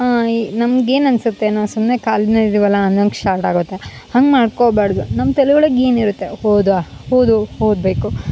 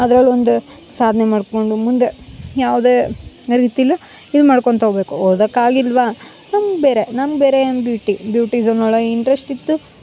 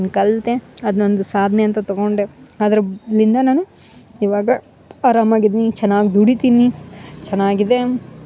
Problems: none marked